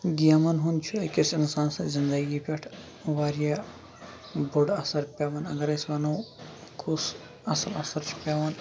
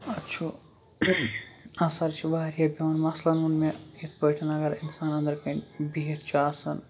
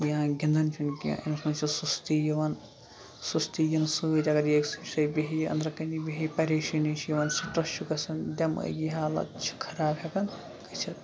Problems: constant background noise, low volume